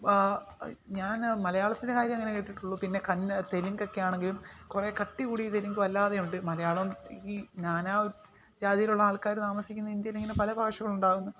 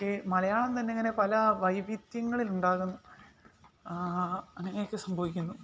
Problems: background sounds at intervals